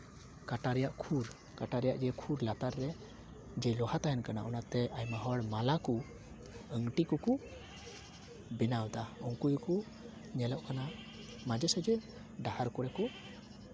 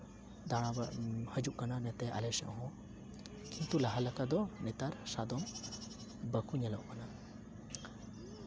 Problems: constant background noise, continuous background conversations